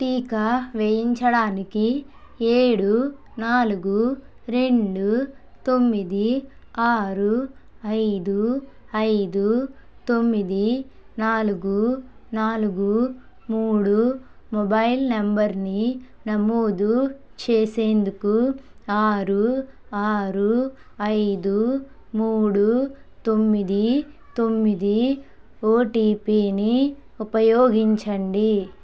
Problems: background conversations at intervals